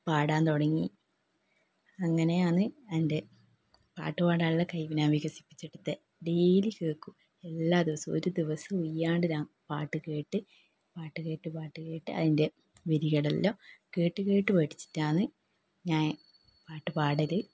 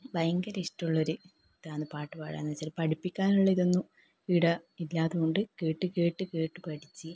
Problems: low volume